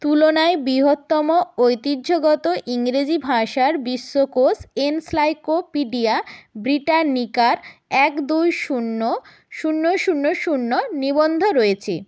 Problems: constant background noise